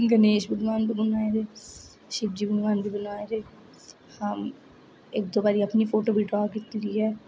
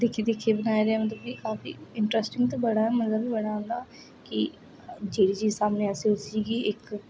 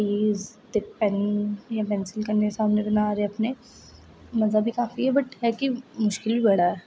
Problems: none marked